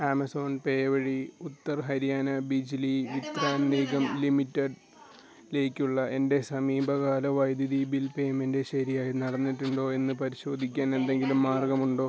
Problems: background conversations at intervals